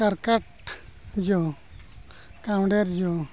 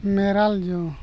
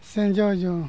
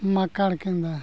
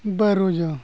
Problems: background sounds at intervals